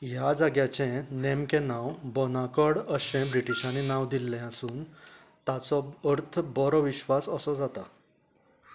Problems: background sounds at intervals